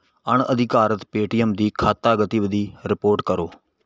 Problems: none marked